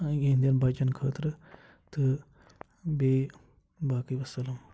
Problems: constant background noise, low volume